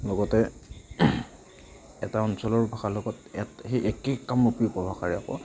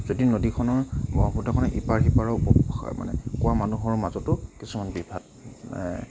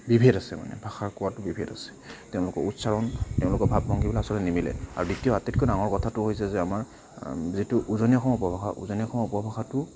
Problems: constant background noise, continuous background conversations